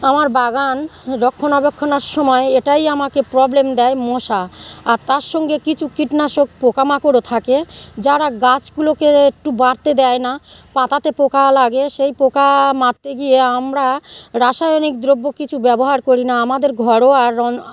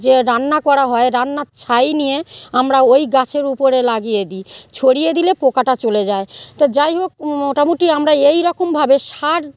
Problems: none marked